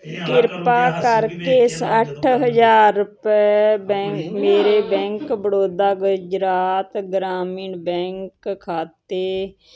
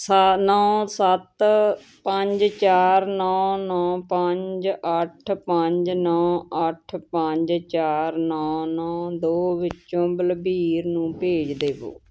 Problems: continuous background conversations